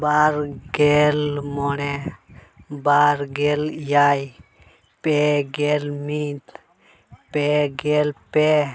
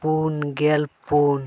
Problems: background conversations at intervals